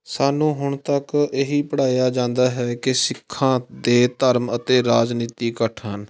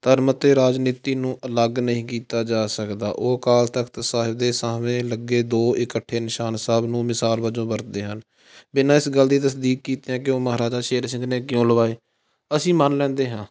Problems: constant background noise